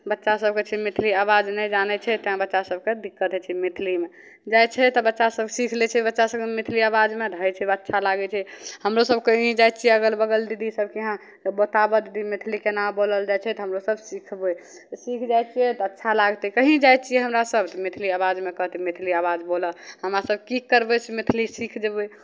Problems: none marked